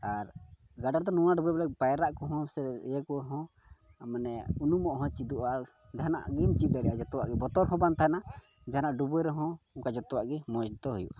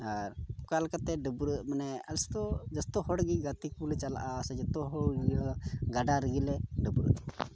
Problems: constant background noise, low volume